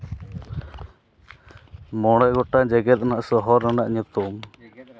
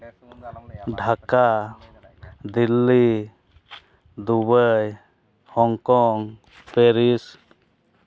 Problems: background sounds at intervals, background conversations at intervals